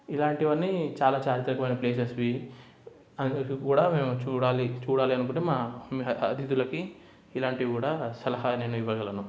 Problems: none marked